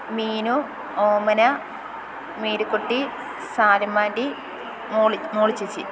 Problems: none marked